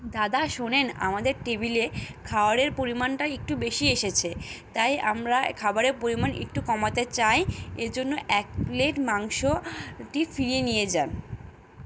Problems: none marked